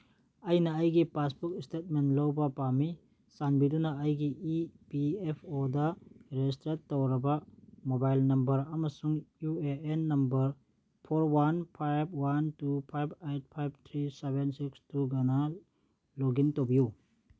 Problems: none marked